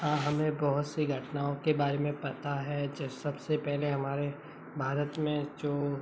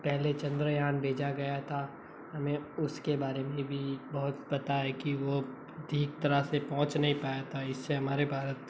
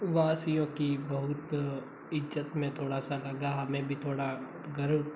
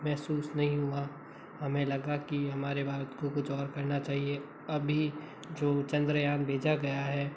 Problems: constant background noise